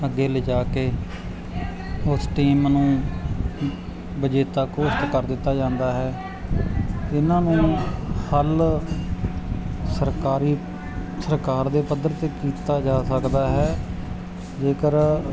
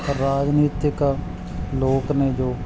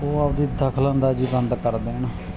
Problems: background sounds at intervals